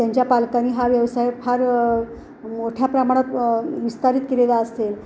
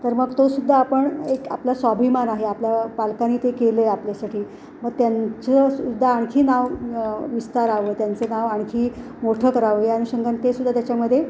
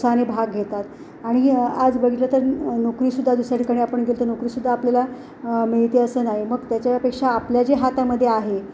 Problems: none marked